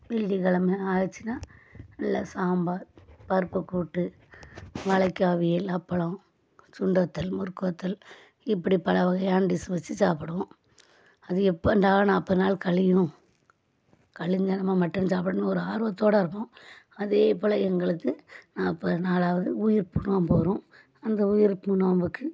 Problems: none marked